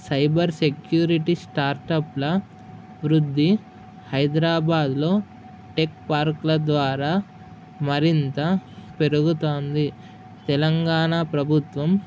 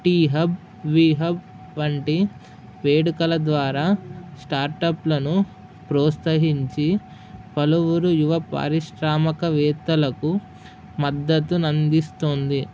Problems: none marked